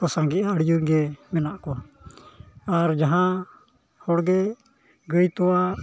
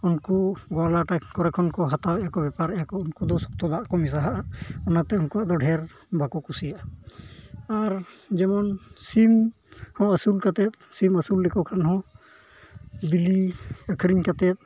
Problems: background sounds at intervals, low volume